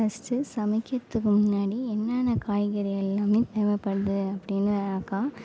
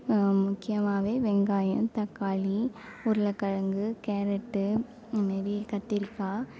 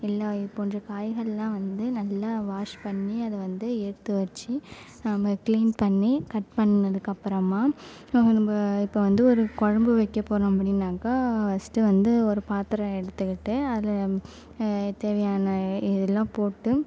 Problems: none marked